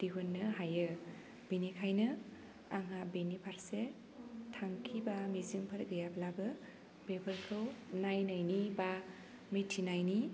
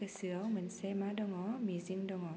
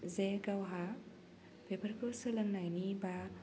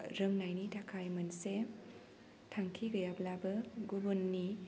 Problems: low volume